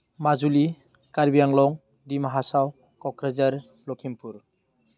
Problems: constant background noise